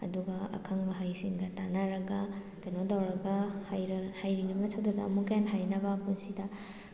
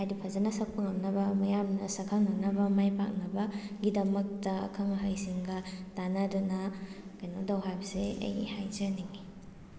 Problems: constant background noise, low volume